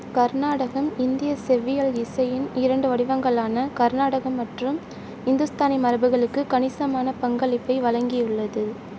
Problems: none marked